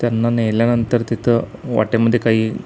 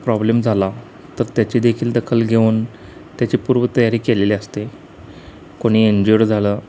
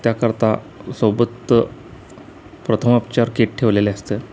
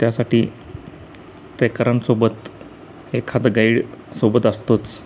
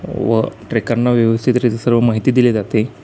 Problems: constant background noise